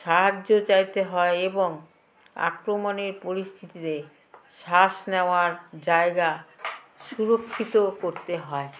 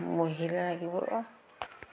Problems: background sounds at intervals